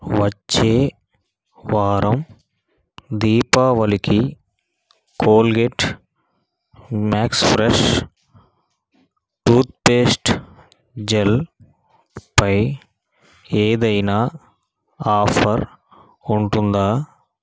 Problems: none marked